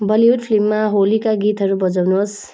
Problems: background sounds at intervals